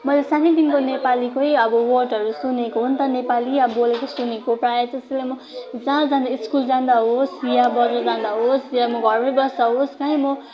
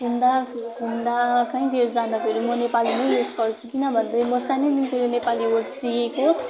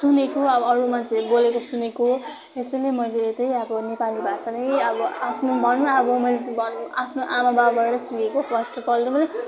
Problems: continuous background conversations